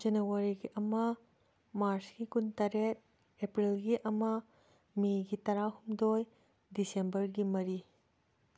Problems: none marked